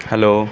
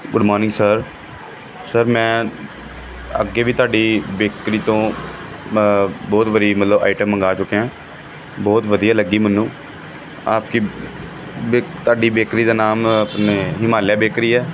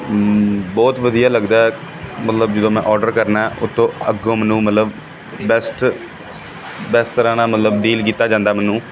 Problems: continuous background conversations